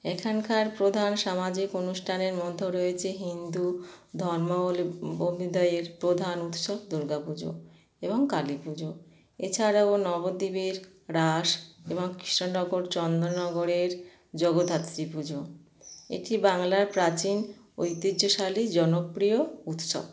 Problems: none marked